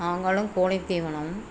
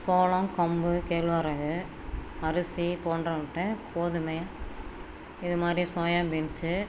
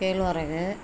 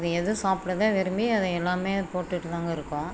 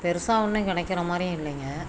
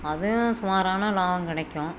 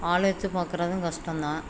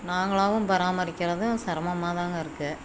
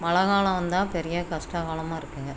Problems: background sounds at intervals